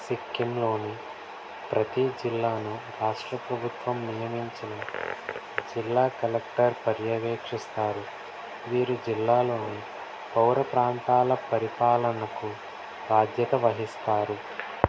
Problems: constant background noise, low volume